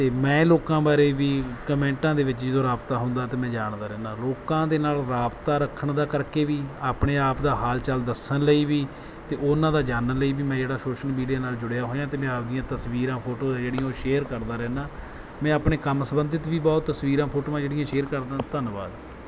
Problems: background sounds at intervals